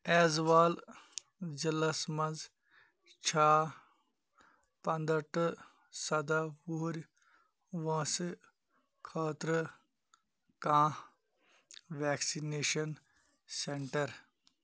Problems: none marked